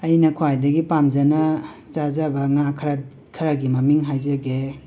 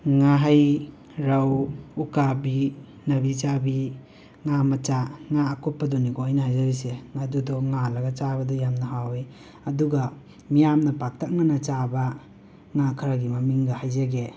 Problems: constant background noise